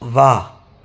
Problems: constant background noise, echo